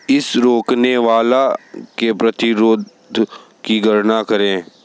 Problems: constant background noise